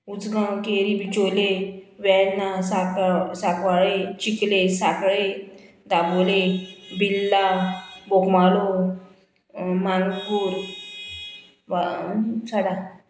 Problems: background sounds at intervals